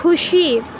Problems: constant background noise